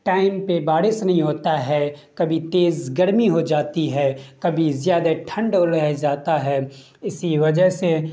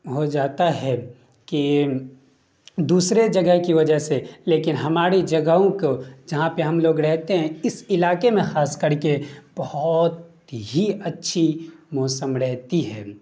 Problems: none marked